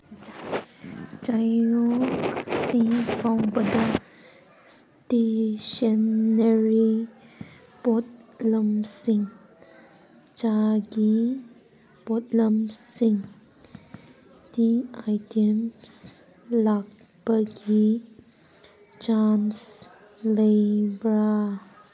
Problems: background sounds at intervals